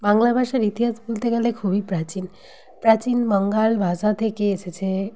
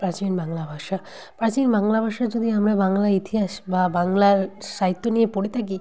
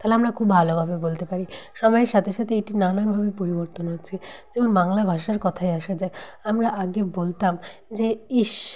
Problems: background conversations at intervals